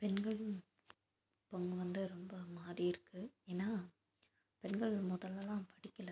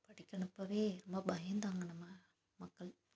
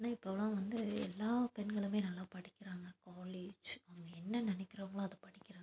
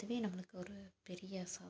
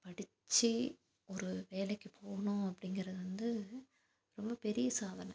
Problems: constant background noise